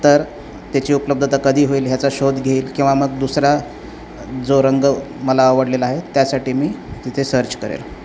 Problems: none marked